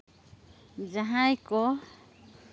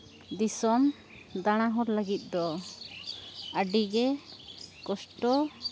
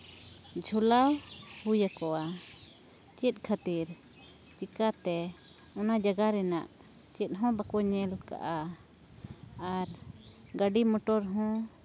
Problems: background conversations at intervals